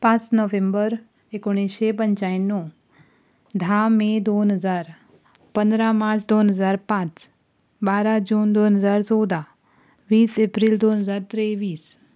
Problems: none marked